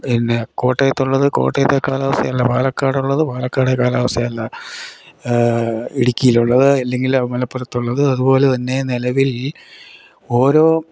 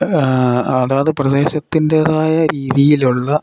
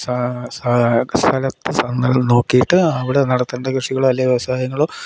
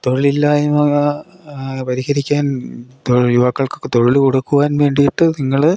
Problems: none marked